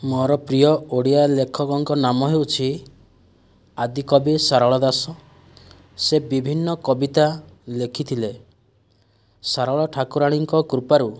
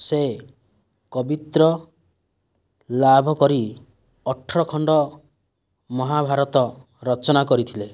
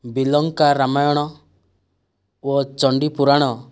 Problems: none marked